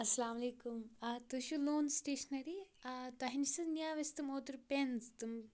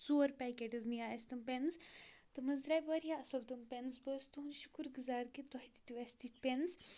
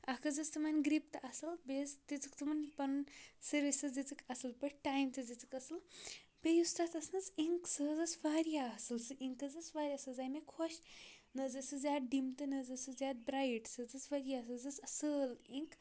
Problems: none marked